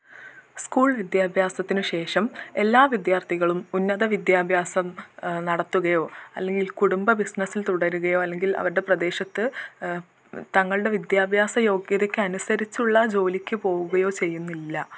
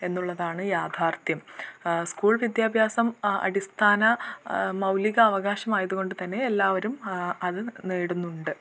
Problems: none marked